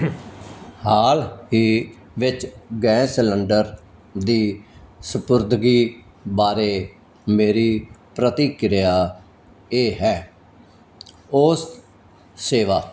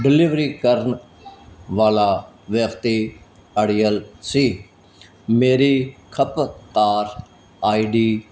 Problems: none marked